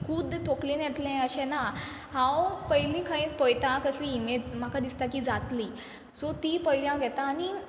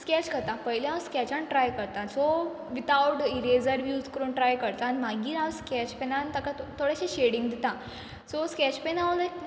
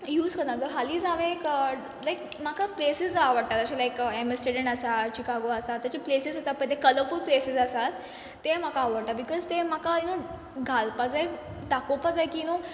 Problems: background conversations at intervals